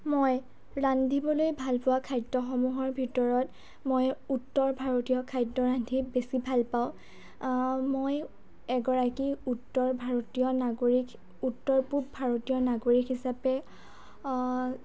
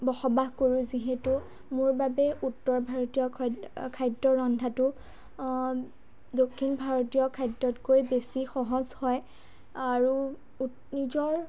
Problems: low volume